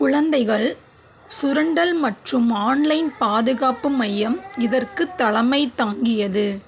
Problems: constant background noise